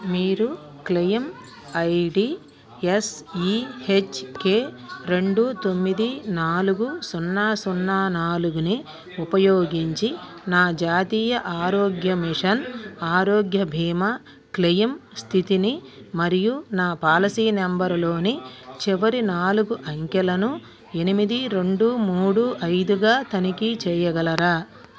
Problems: continuous background conversations